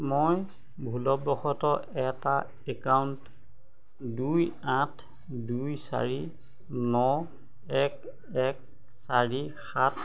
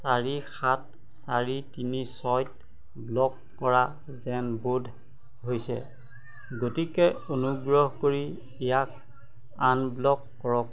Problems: constant background noise, background conversations at intervals